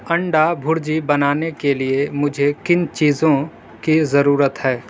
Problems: constant background noise